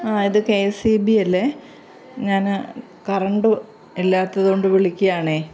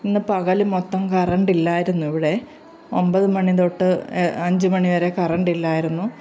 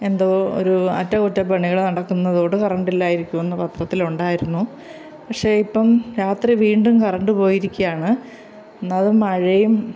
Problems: background sounds at intervals